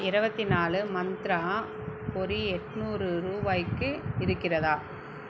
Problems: low volume